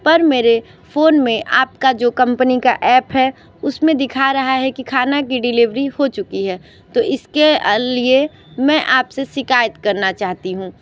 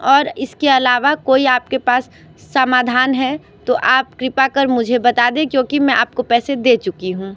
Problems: background sounds at intervals